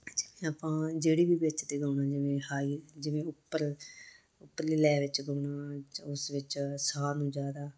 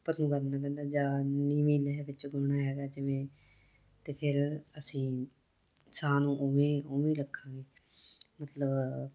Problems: none marked